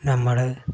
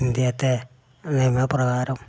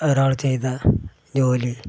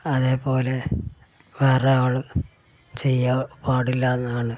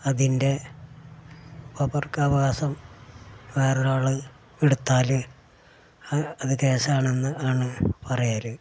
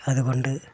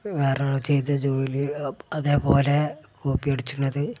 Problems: background sounds at intervals